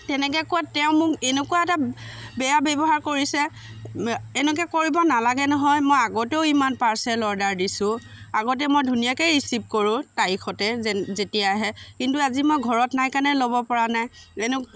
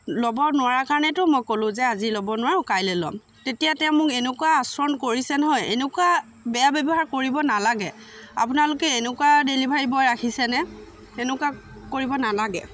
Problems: constant background noise, continuous background conversations